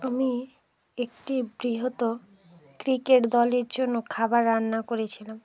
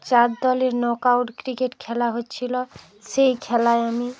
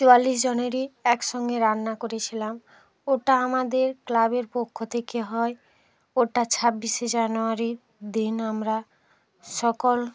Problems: background sounds at intervals, continuous background conversations